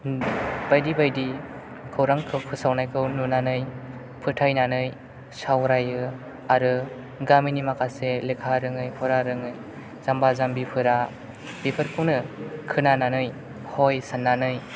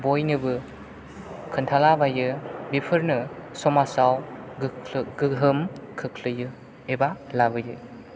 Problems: background sounds at intervals